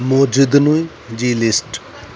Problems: constant background noise